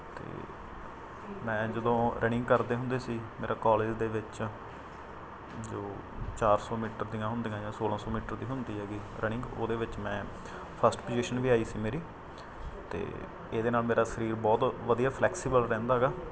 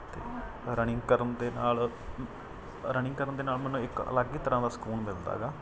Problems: none marked